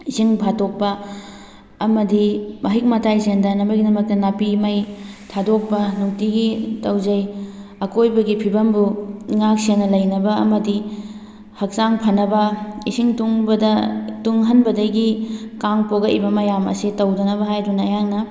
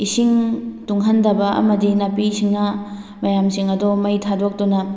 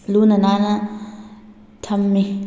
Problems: none marked